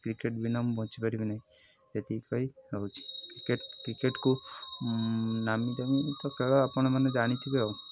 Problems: constant background noise